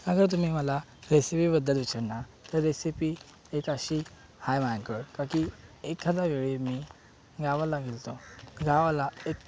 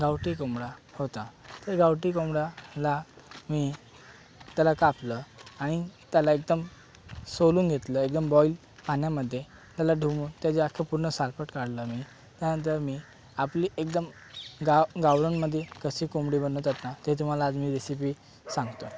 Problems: constant background noise